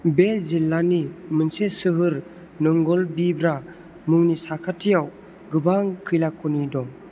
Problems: constant background noise